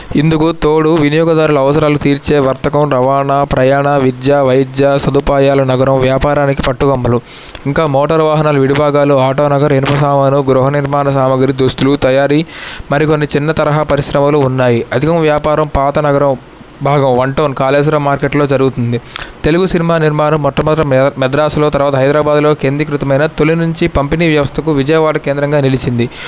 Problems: none marked